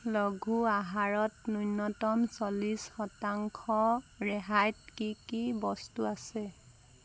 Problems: constant background noise